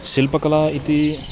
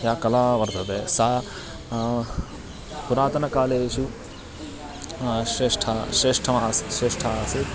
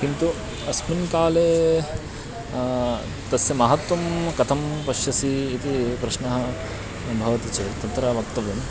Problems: constant background noise, background conversations at intervals